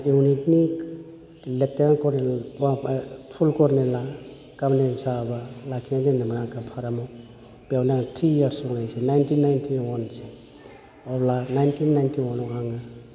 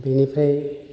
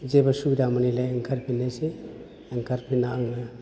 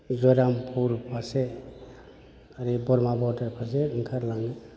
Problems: low volume